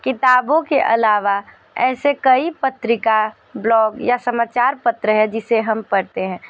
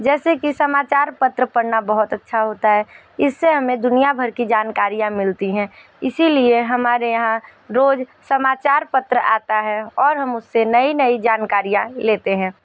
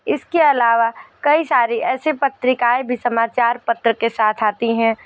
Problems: none marked